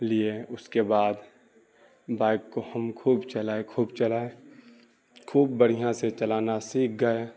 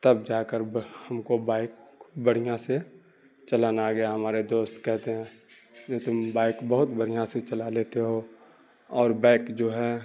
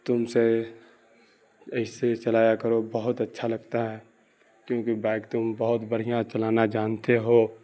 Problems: none marked